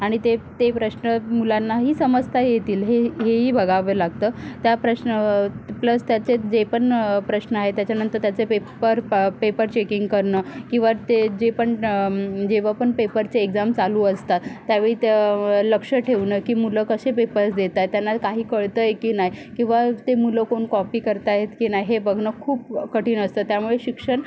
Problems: background sounds at intervals